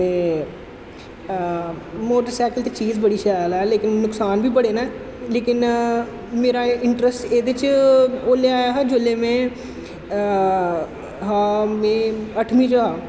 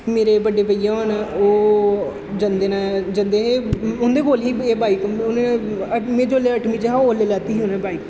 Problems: constant background noise, echo